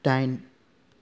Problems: low volume